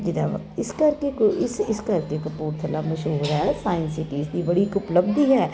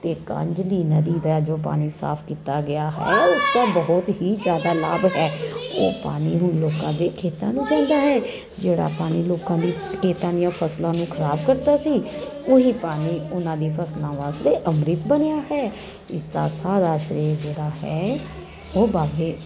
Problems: constant background noise